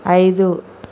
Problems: constant background noise